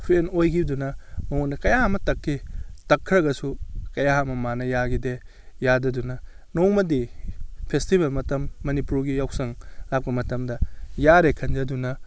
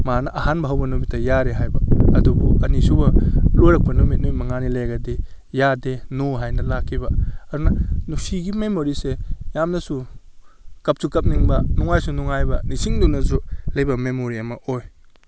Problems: none marked